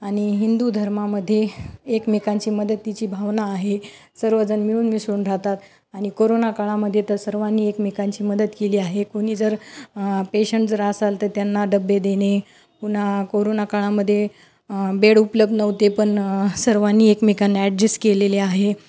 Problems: none marked